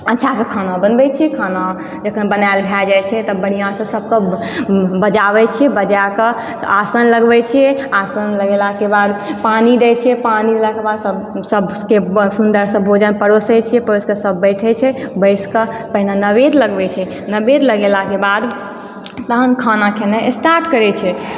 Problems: background sounds at intervals, background conversations at intervals